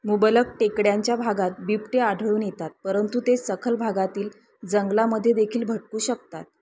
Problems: constant background noise